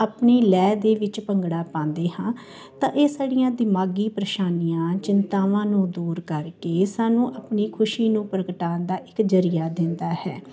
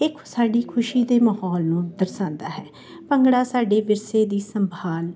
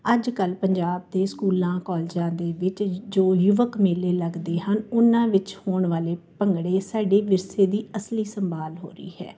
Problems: none marked